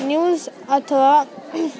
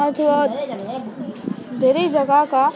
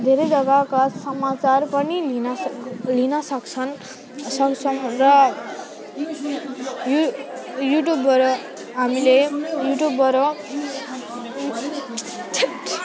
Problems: none marked